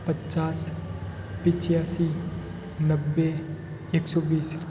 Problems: constant background noise